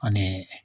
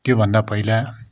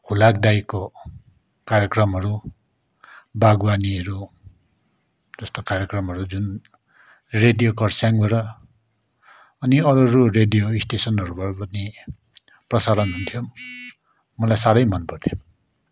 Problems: none marked